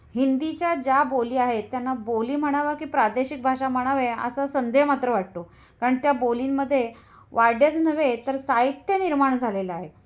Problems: constant background noise, background conversations at intervals